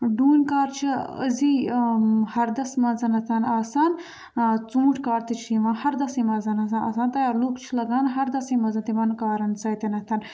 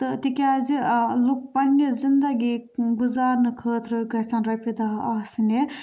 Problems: background sounds at intervals